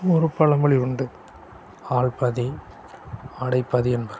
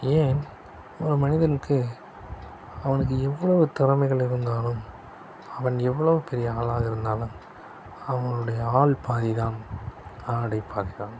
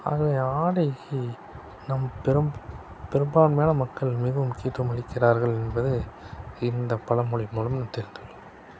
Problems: constant background noise